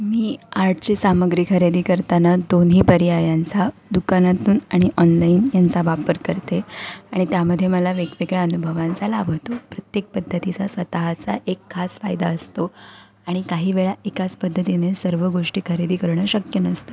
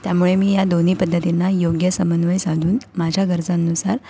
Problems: none marked